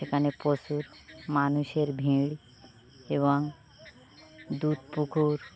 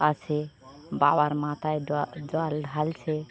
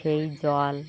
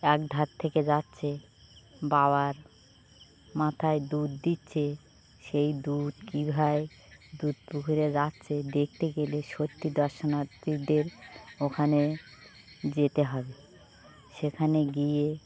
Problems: background sounds at intervals